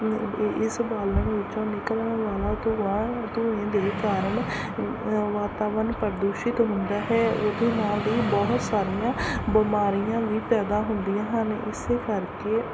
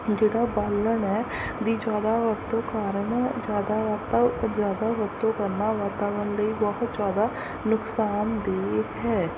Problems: constant background noise